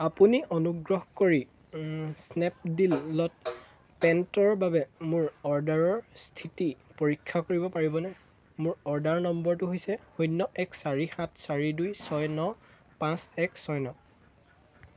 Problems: constant background noise